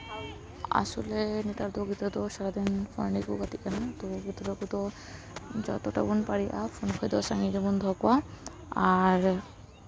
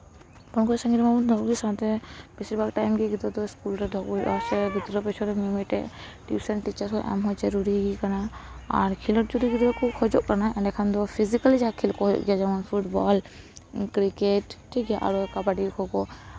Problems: background conversations at intervals